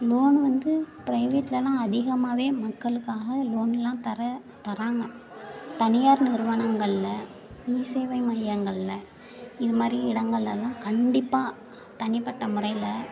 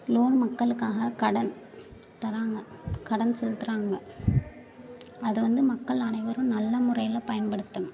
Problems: background sounds at intervals, continuous background conversations